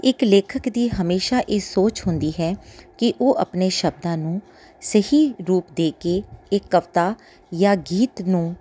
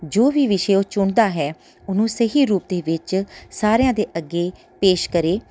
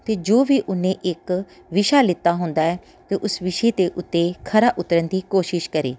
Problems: background sounds at intervals